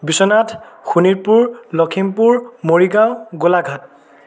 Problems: background sounds at intervals